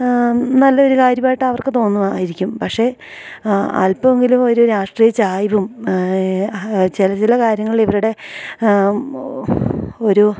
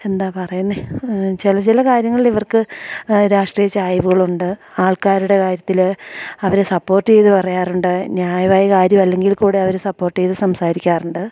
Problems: none marked